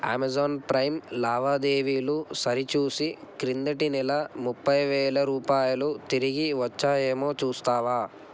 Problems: constant background noise